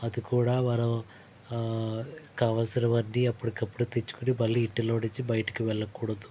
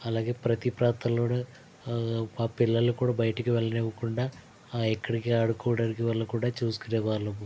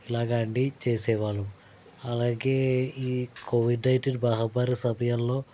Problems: constant background noise